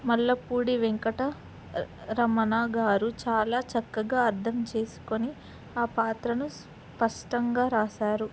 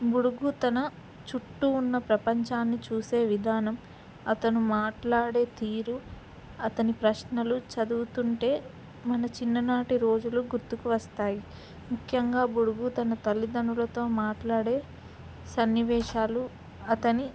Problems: background sounds at intervals